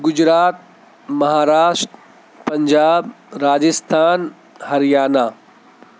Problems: constant background noise